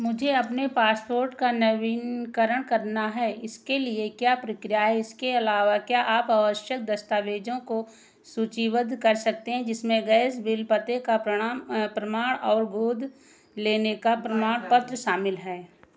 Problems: none marked